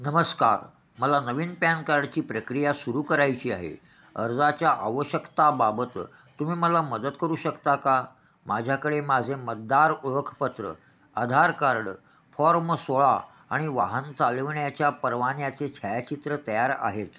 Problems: none marked